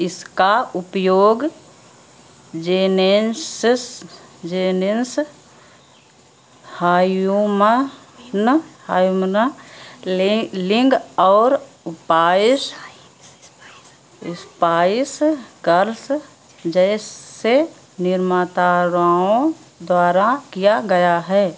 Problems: constant background noise